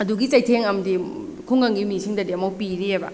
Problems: none marked